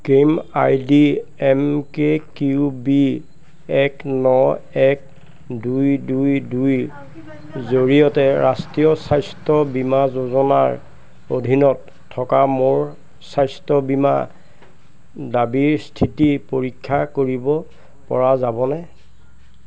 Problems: constant background noise